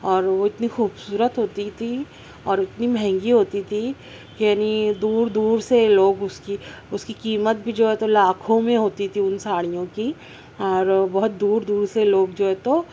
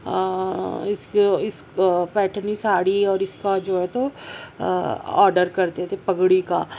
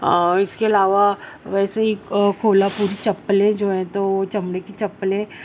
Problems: constant background noise